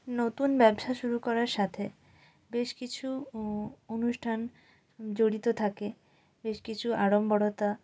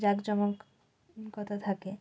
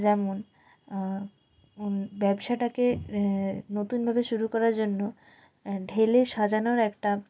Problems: none marked